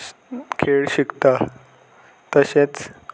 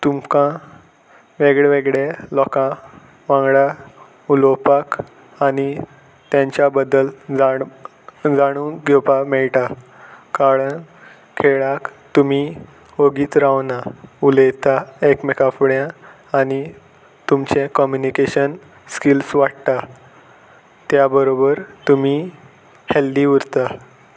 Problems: none marked